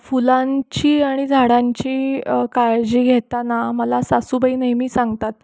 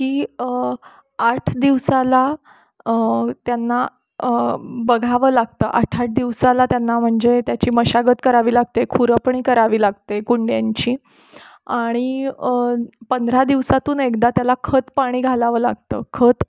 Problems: constant background noise, background conversations at intervals